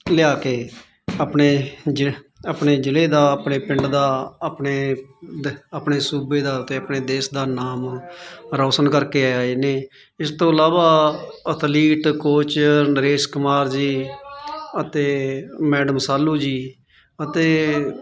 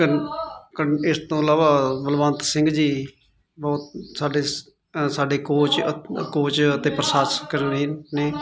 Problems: continuous background conversations